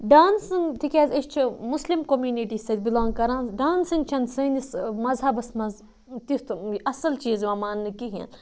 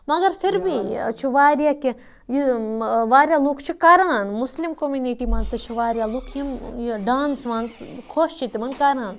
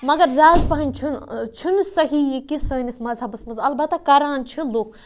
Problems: background sounds at intervals